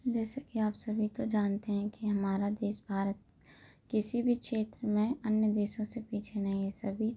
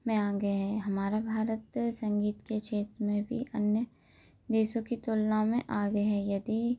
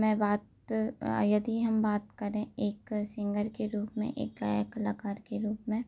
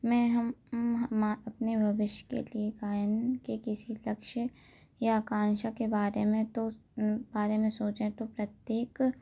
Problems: constant background noise